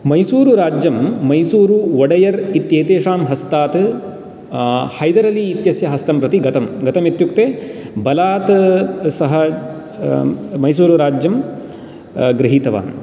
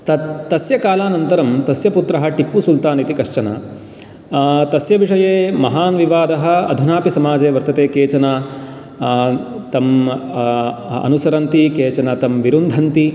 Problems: background sounds at intervals